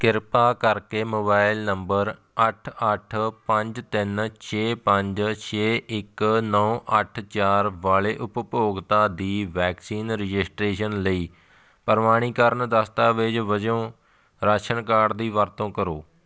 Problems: background sounds at intervals